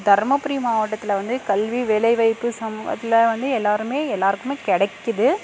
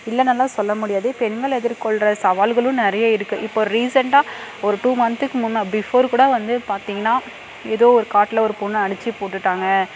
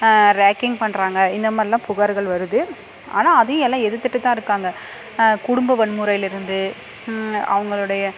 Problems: constant background noise, background conversations at intervals